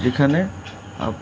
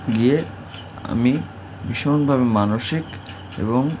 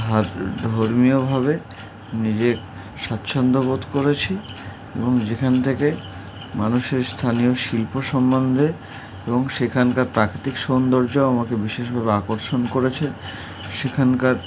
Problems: none marked